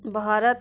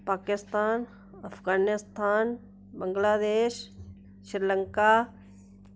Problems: none marked